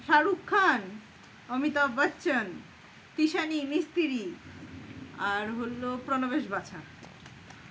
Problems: constant background noise